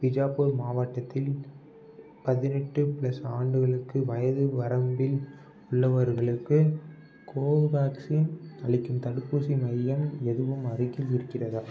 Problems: background sounds at intervals